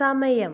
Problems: low volume